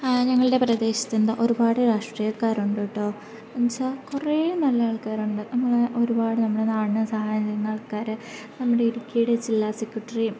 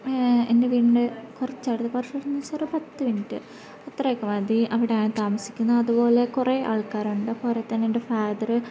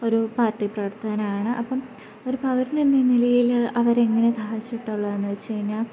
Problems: constant background noise